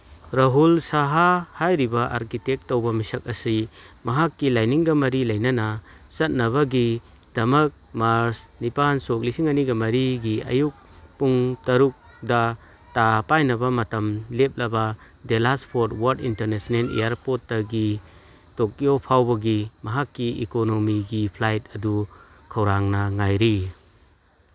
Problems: background sounds at intervals